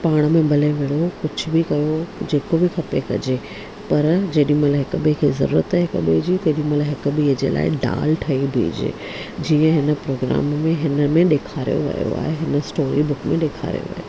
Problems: low volume